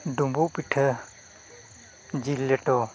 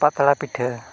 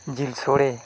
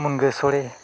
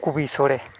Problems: constant background noise